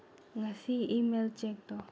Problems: low volume